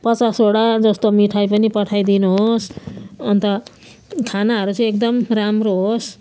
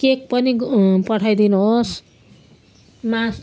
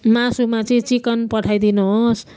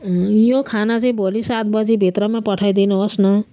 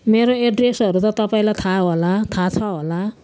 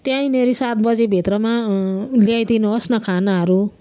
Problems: none marked